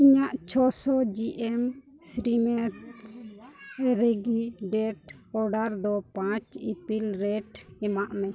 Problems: constant background noise, low volume